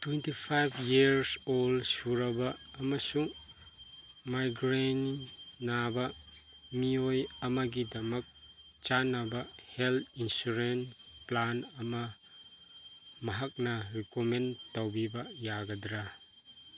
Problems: background sounds at intervals